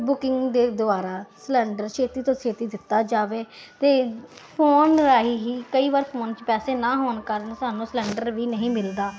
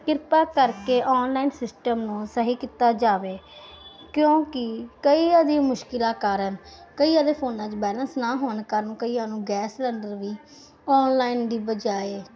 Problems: none marked